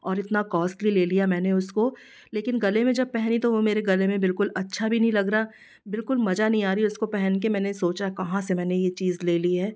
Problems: background sounds at intervals